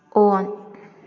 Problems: none marked